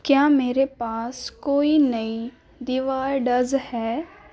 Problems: none marked